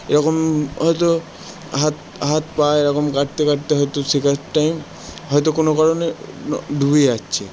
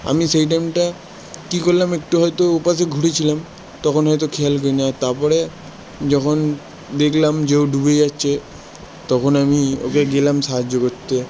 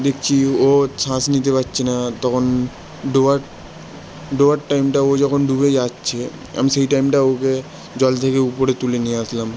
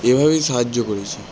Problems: constant background noise